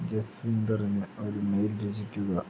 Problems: constant background noise, low volume